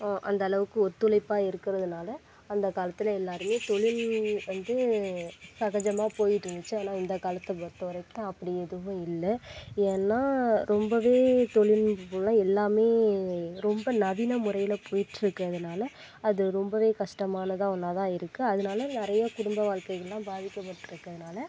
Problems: constant background noise